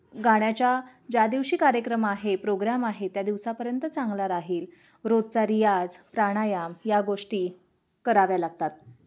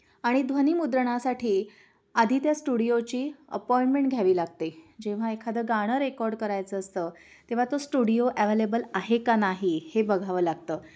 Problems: none marked